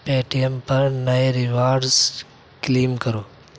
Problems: background sounds at intervals